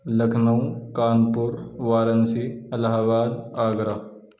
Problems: none marked